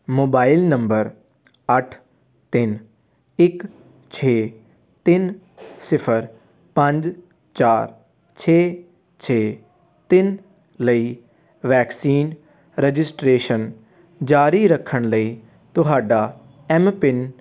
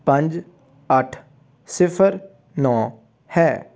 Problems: constant background noise